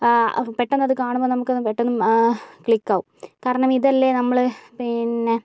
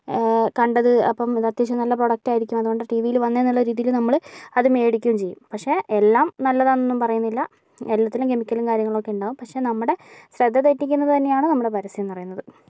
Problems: none marked